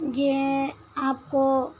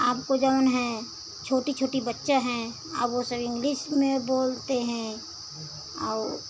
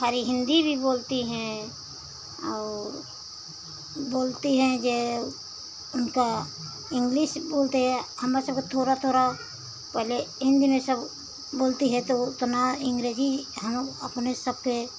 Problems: constant background noise